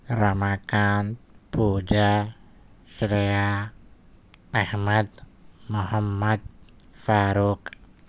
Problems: none marked